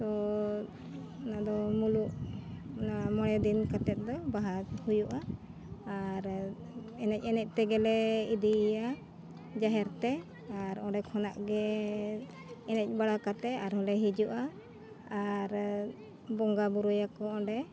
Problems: constant background noise, background conversations at intervals